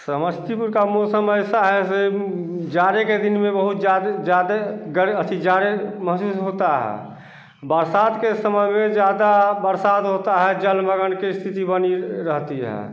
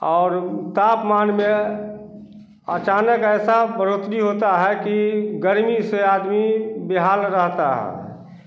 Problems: constant background noise